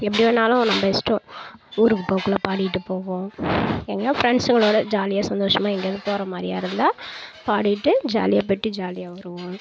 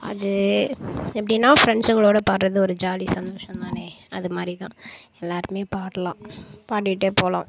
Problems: background sounds at intervals